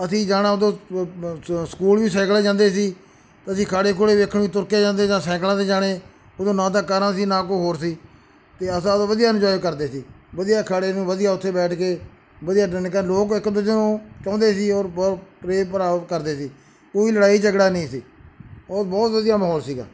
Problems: background sounds at intervals